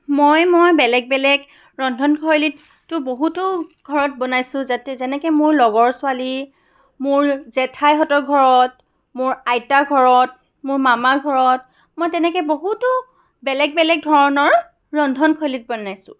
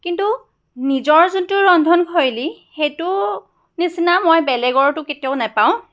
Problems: background sounds at intervals